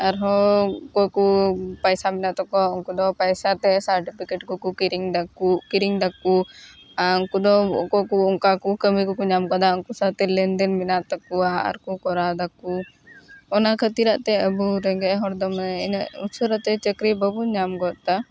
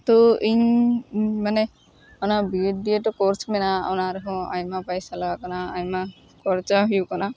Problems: constant background noise